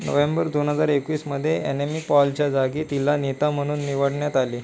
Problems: none marked